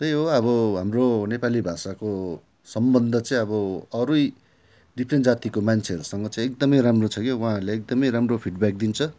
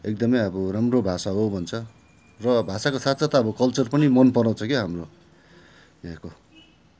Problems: background sounds at intervals